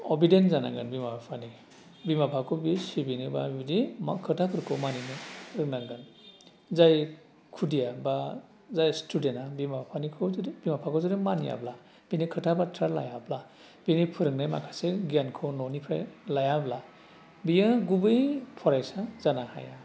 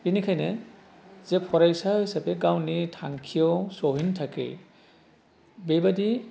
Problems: constant background noise